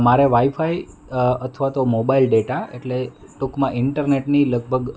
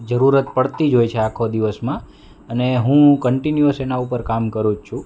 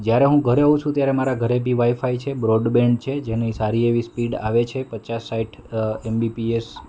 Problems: none marked